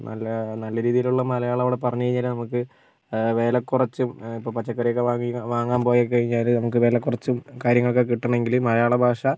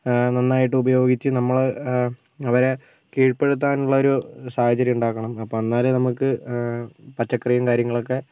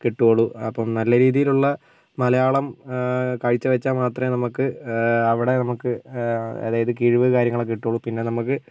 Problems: none marked